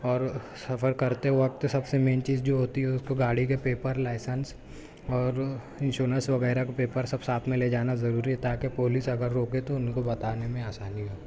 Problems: none marked